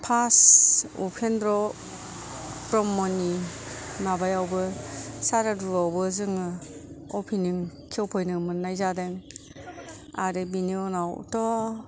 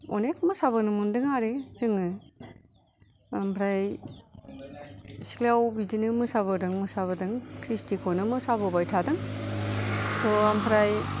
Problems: none marked